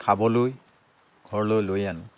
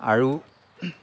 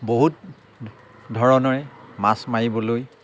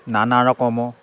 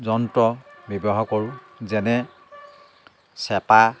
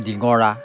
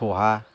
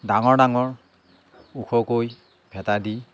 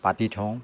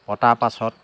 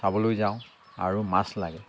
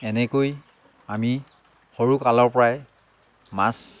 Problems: background sounds at intervals, background conversations at intervals